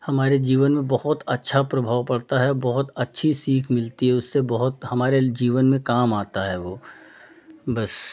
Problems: none marked